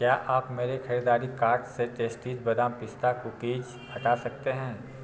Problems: constant background noise, low volume